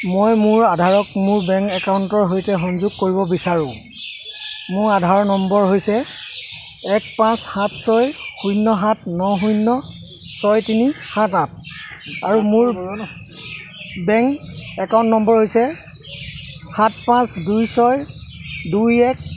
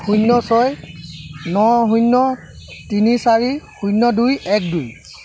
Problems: none marked